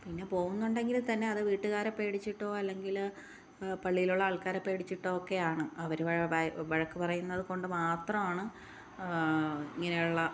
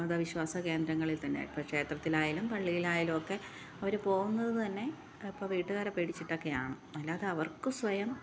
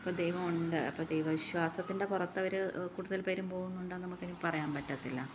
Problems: low volume